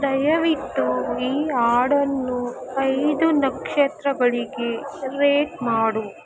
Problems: constant background noise